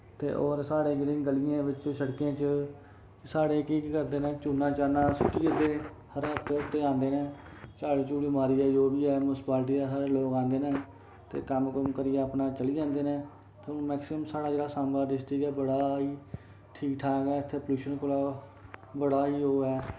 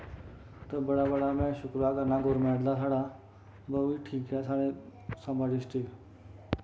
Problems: constant background noise